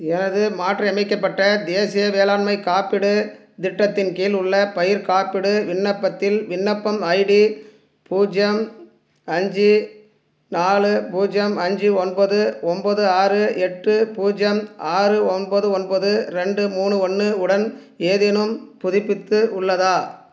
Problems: none marked